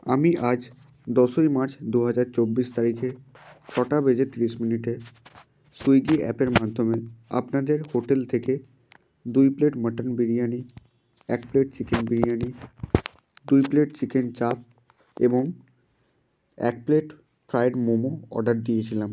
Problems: constant background noise